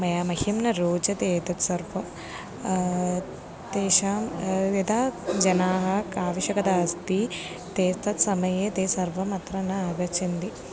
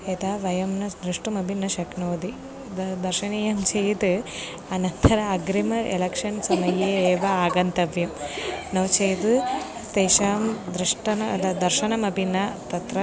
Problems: background sounds at intervals, background conversations at intervals